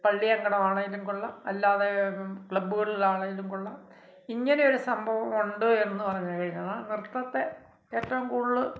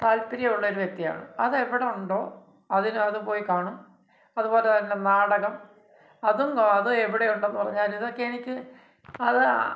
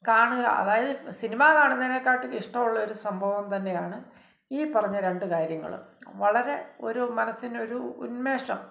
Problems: none marked